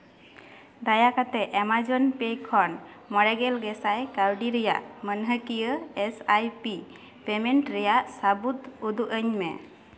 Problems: background sounds at intervals, echo